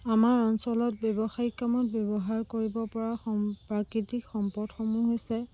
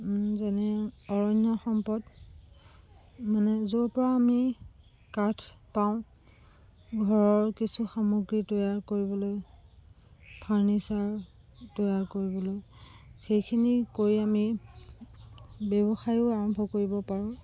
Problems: constant background noise